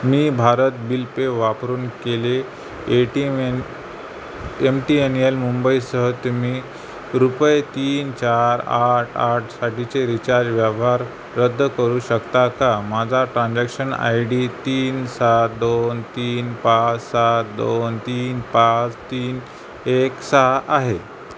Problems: constant background noise